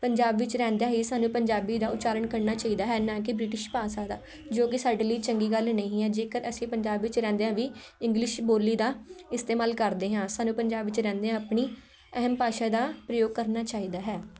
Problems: none marked